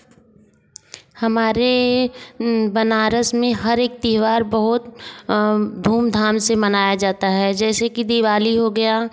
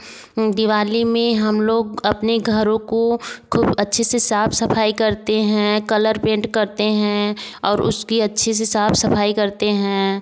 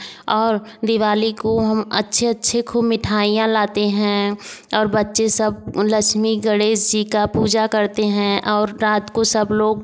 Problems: none marked